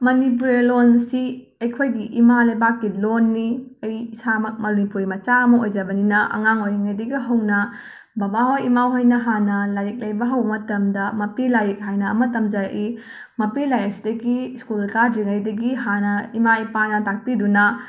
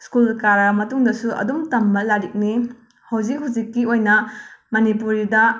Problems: background sounds at intervals